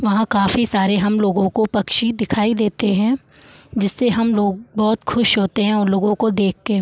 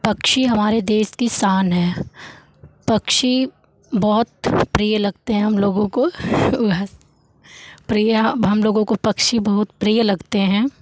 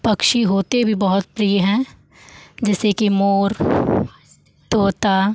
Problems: background sounds at intervals